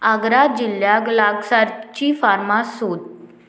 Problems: constant background noise